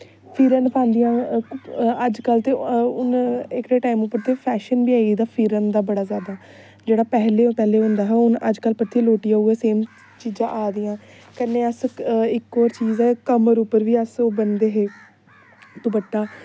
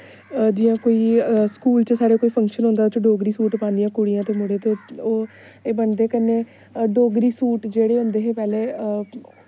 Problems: constant background noise